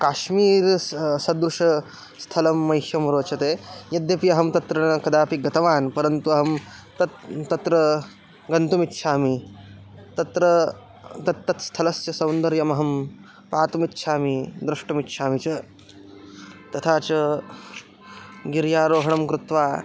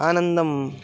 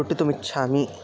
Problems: background sounds at intervals